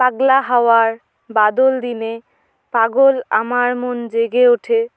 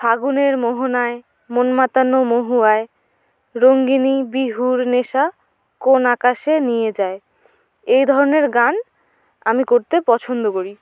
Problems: none marked